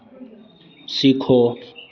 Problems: constant background noise